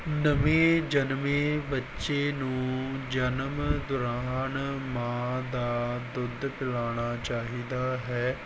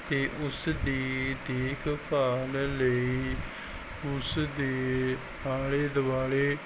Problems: background sounds at intervals